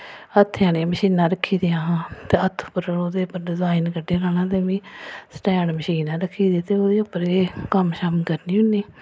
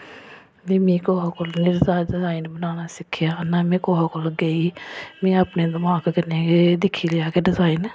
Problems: none marked